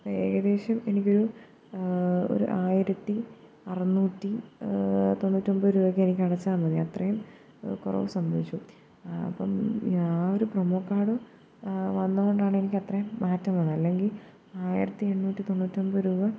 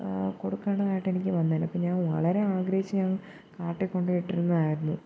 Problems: low volume